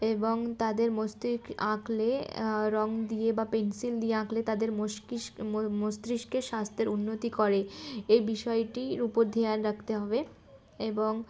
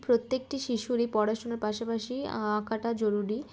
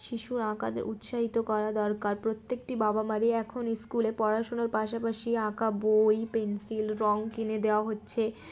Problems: constant background noise